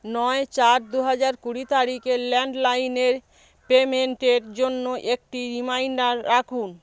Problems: background sounds at intervals